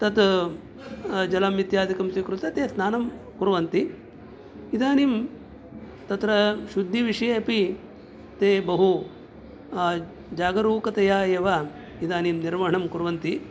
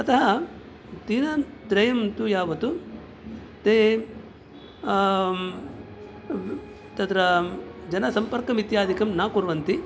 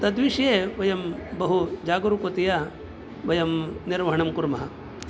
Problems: background sounds at intervals